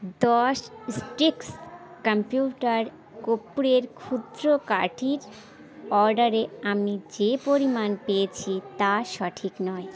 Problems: constant background noise, continuous background conversations